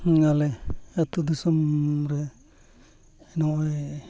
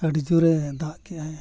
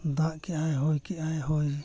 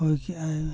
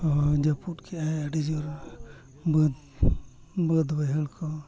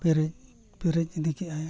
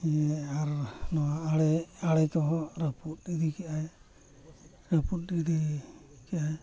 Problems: constant background noise, background conversations at intervals